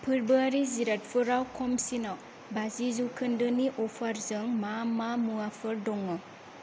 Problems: none marked